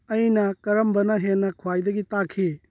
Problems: none marked